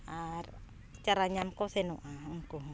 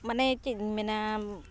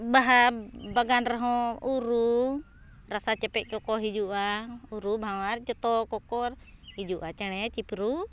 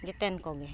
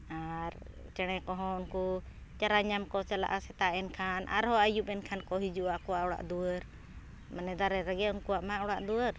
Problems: background sounds at intervals